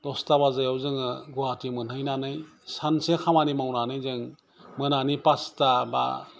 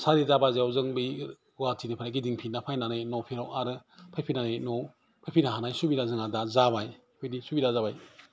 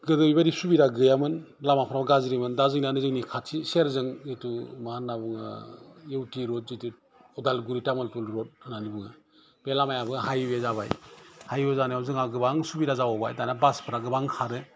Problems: constant background noise